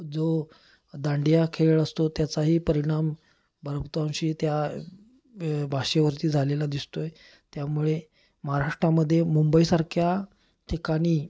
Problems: constant background noise